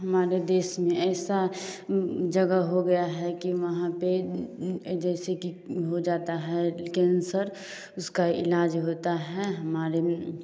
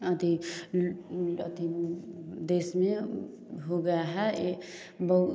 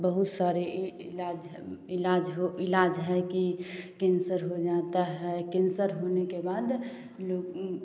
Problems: constant background noise